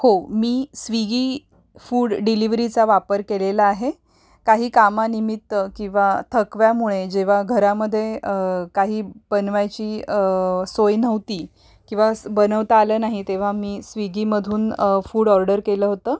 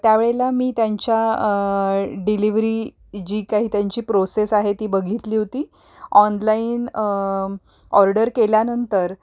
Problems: none marked